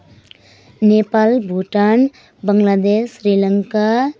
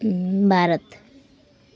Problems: background sounds at intervals